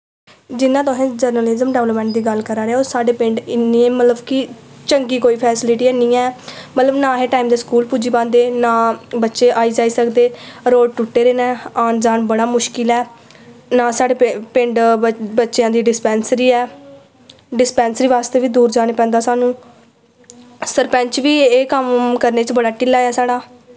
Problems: echo